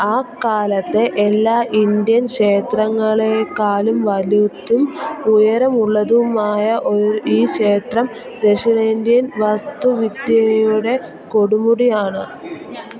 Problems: continuous background conversations